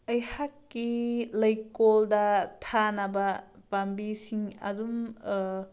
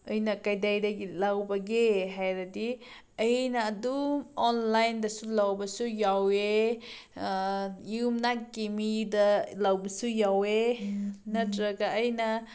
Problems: none marked